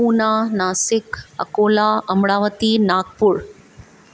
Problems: none marked